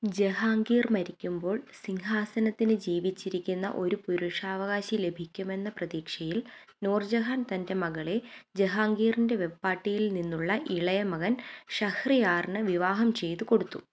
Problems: none marked